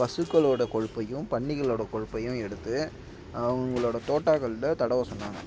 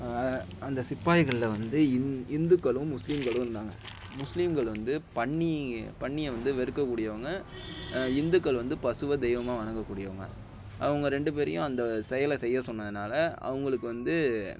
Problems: constant background noise